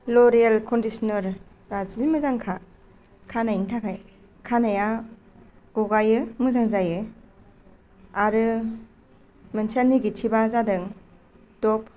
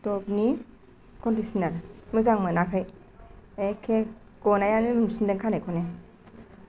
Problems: none marked